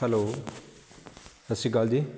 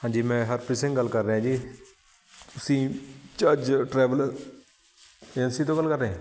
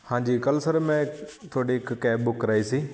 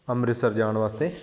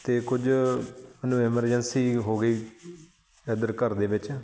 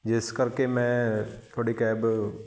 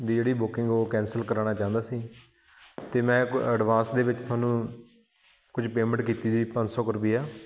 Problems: constant background noise